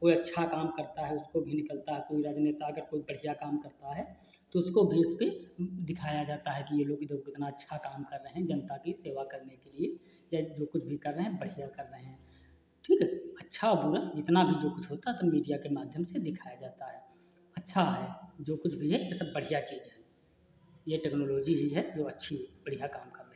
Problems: constant background noise